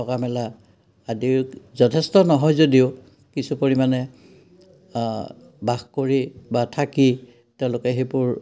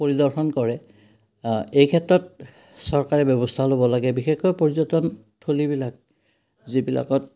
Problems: none marked